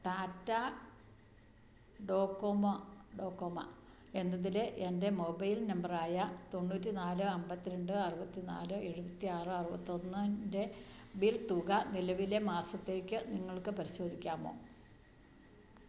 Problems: none marked